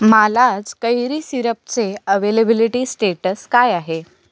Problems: none marked